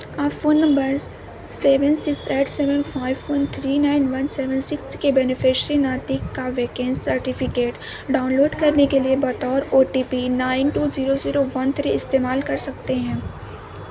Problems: constant background noise, background conversations at intervals